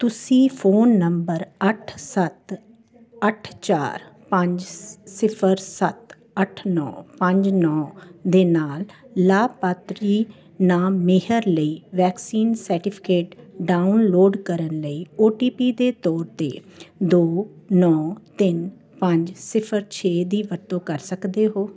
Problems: continuous background conversations